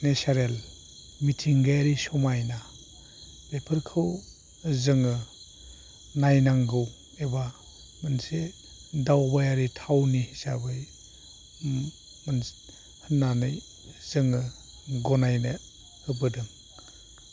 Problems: low volume